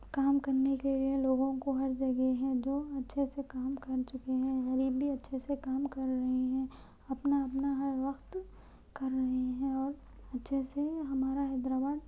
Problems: low volume